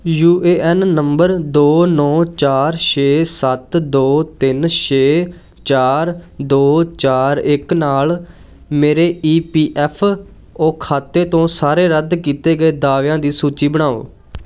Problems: background sounds at intervals